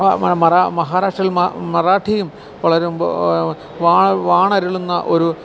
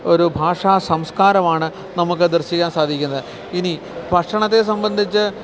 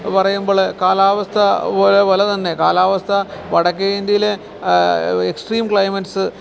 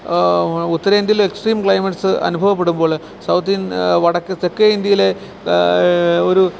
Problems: constant background noise